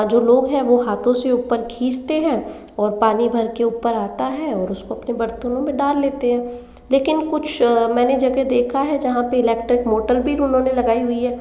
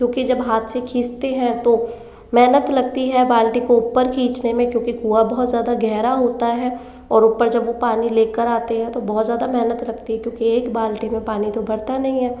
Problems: constant background noise, background conversations at intervals, echo